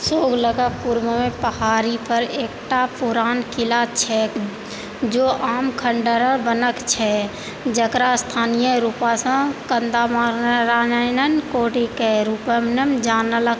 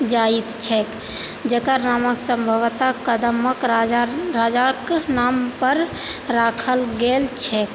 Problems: constant background noise